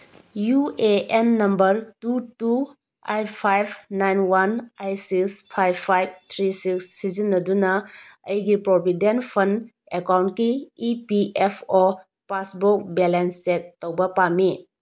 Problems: none marked